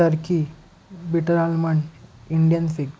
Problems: background sounds at intervals